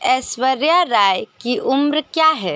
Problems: none marked